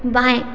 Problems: none marked